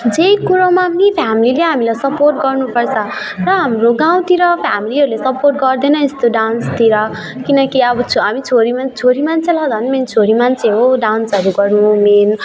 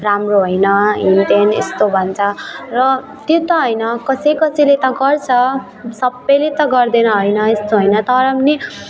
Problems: continuous background conversations